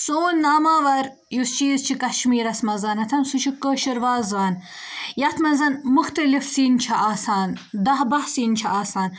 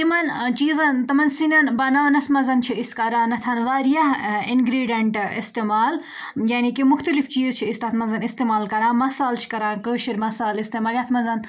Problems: background conversations at intervals